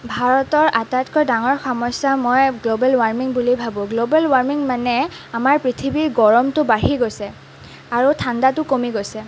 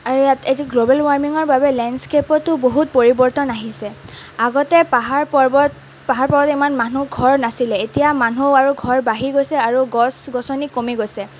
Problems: none marked